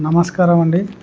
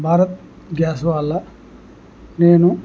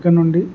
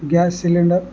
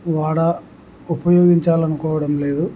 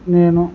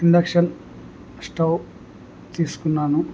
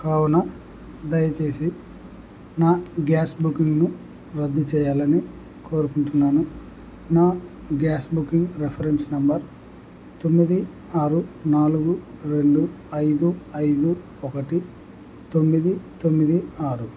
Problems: none marked